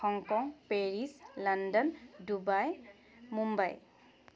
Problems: constant background noise